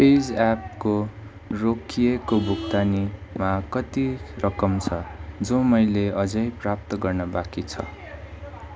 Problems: constant background noise